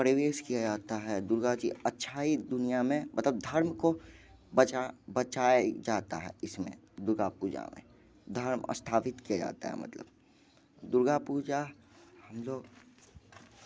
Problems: constant background noise